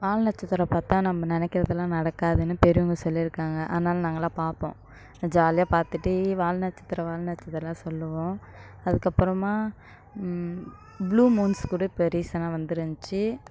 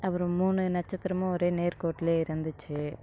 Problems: background sounds at intervals